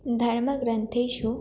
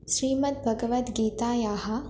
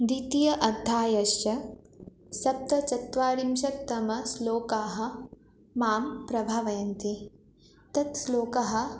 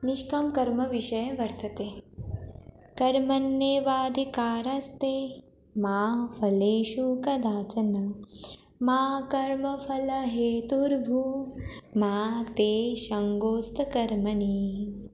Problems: none marked